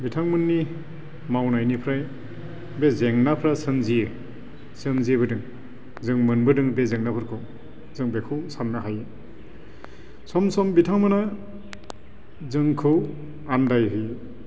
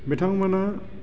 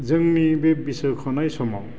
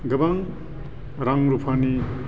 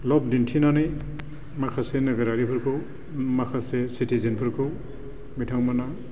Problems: constant background noise